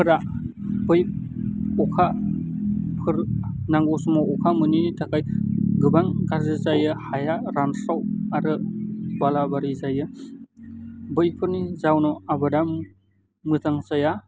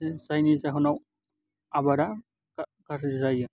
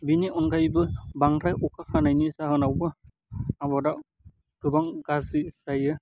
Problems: low volume